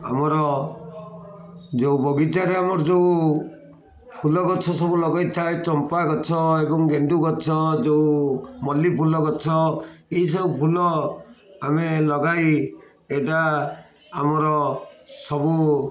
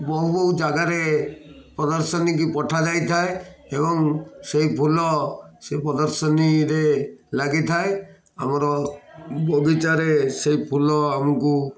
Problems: none marked